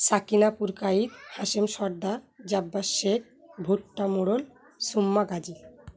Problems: none marked